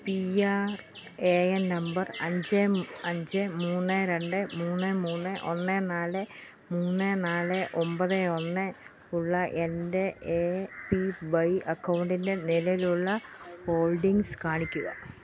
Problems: background sounds at intervals